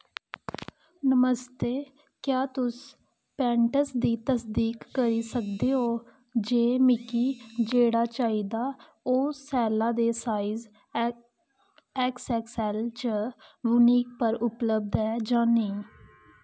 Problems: constant background noise